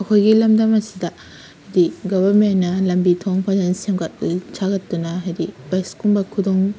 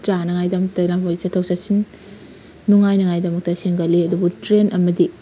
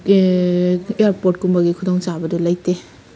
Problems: constant background noise